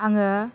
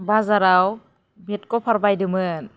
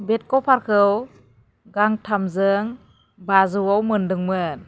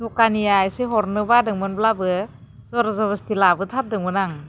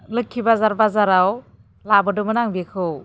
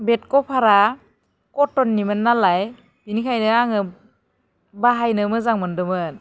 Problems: none marked